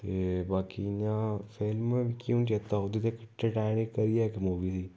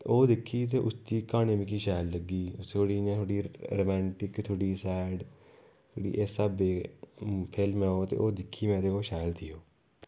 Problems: low volume